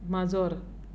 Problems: background sounds at intervals